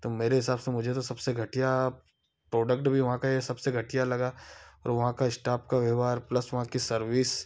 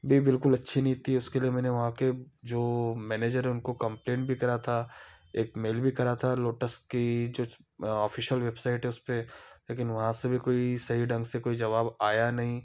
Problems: background sounds at intervals